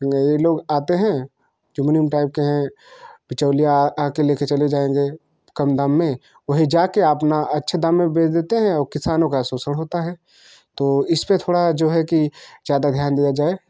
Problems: constant background noise